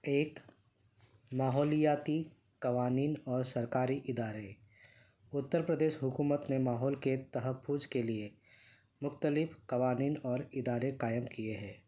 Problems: none marked